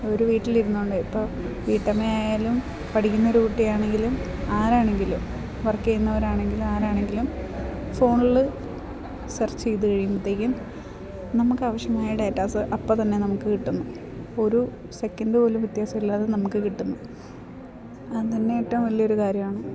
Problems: none marked